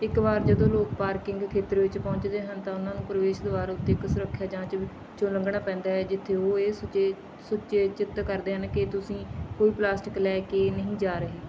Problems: background sounds at intervals